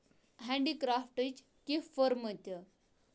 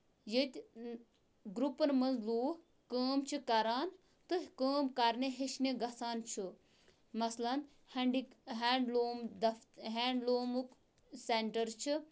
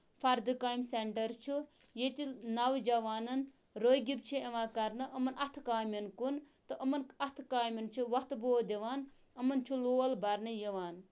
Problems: none marked